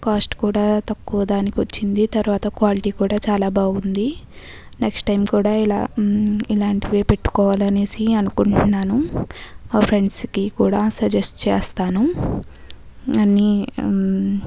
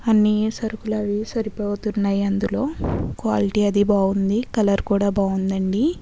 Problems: background sounds at intervals